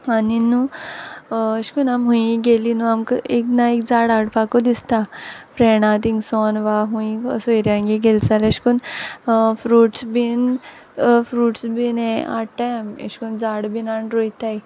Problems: constant background noise